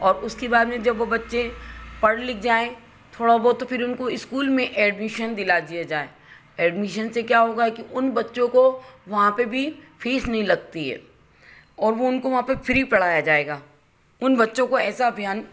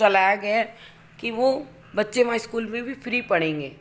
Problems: none marked